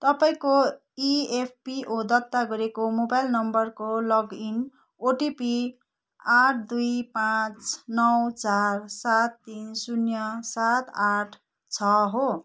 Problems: none marked